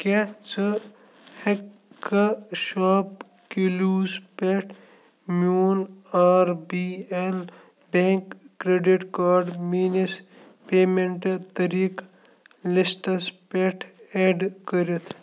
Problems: constant background noise